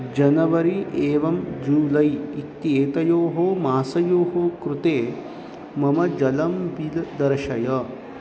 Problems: constant background noise